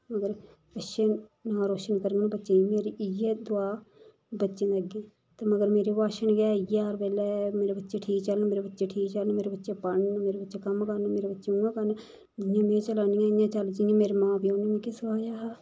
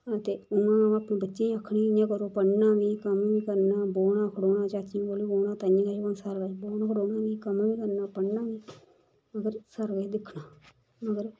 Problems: none marked